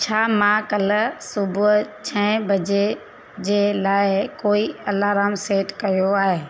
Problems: constant background noise